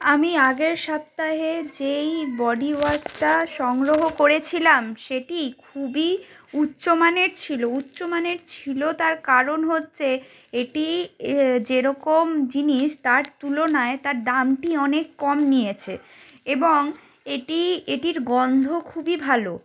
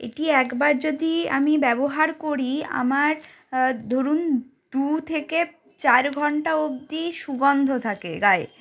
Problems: background sounds at intervals